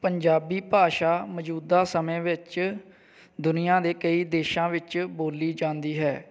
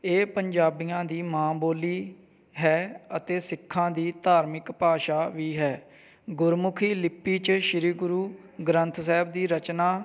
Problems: none marked